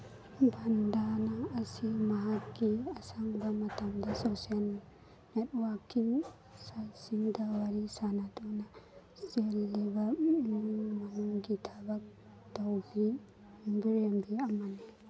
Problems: background sounds at intervals